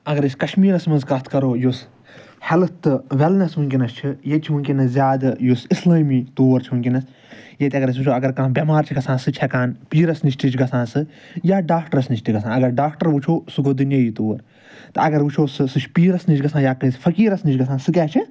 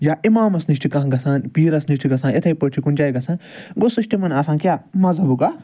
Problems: none marked